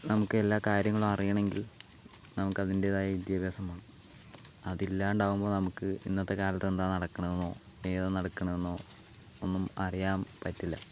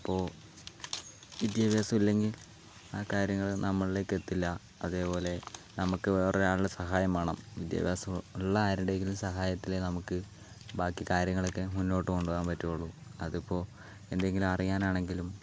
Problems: background sounds at intervals, low volume